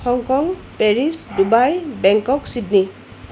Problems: constant background noise